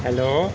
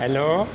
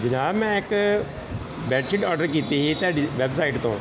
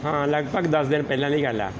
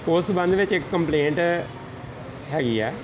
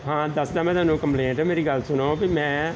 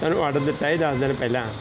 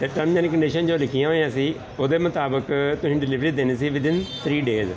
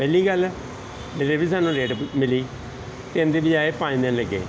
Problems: background sounds at intervals